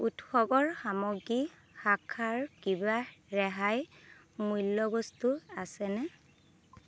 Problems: constant background noise